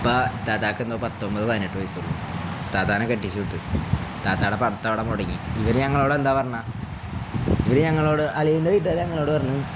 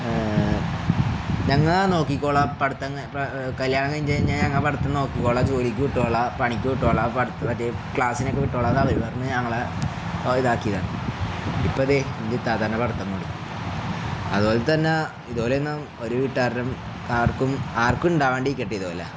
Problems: none marked